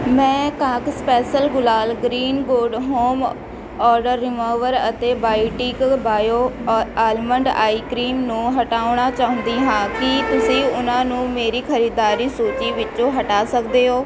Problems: constant background noise